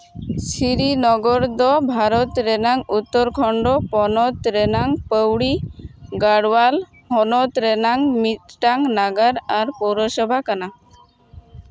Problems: constant background noise